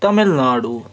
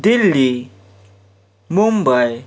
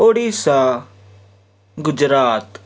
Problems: background sounds at intervals